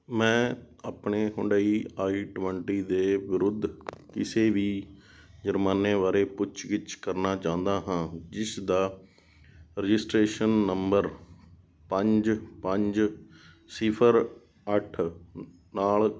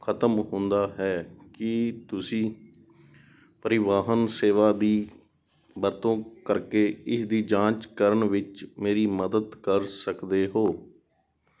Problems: none marked